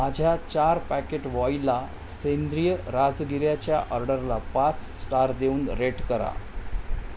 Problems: constant background noise